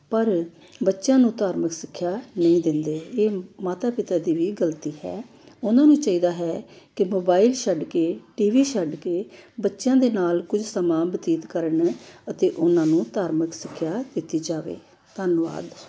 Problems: background sounds at intervals